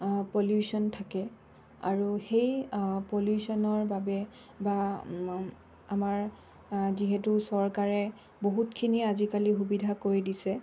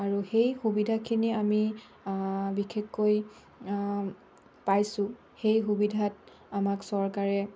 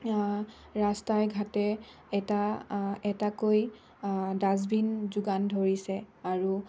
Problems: none marked